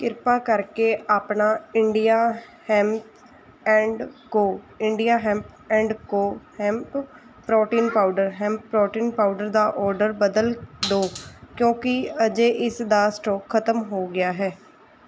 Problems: background sounds at intervals